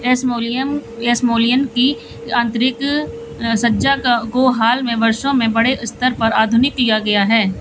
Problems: none marked